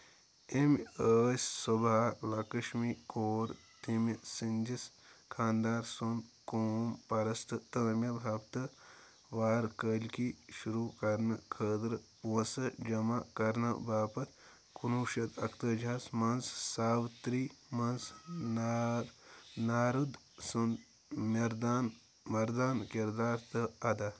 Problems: background sounds at intervals